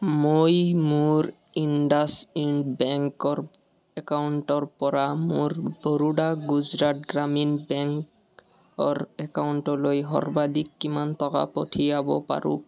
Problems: continuous background conversations